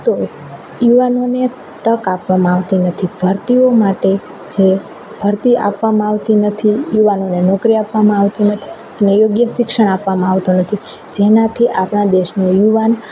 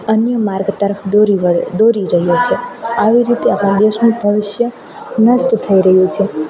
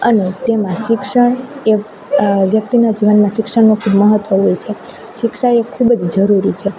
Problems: none marked